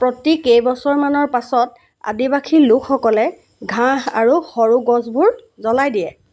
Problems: constant background noise